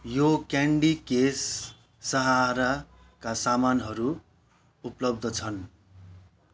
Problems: background sounds at intervals